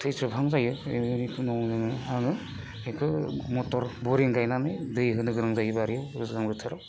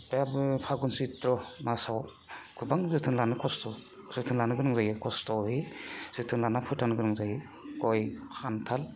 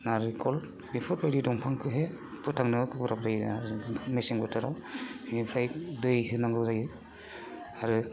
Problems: constant background noise